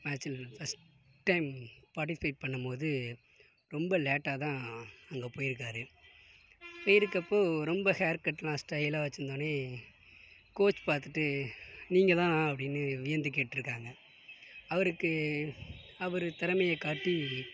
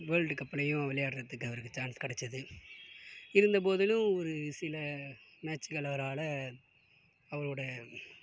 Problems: background sounds at intervals, low volume